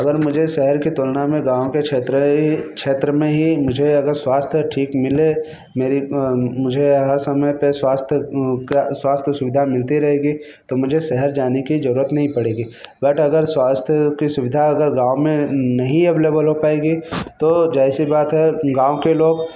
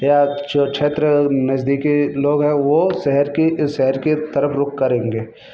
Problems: constant background noise